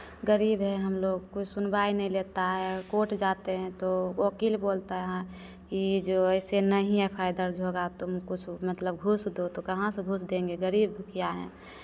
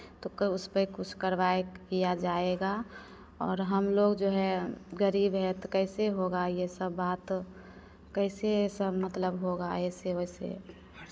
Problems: constant background noise, echo